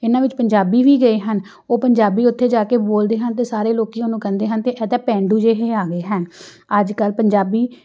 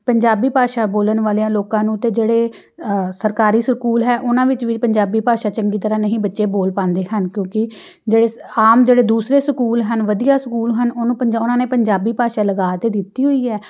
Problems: background sounds at intervals